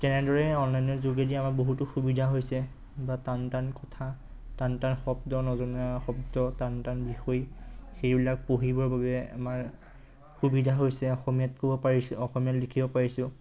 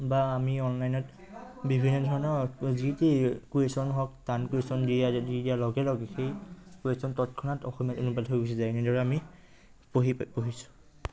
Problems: constant background noise